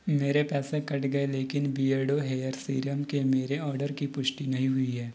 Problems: none marked